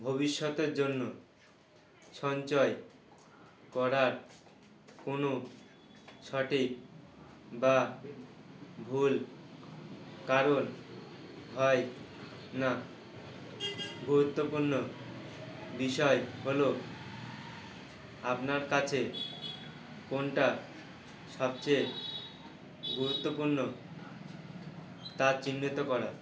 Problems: constant background noise